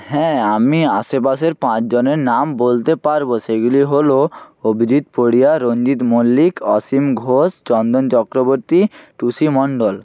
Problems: none marked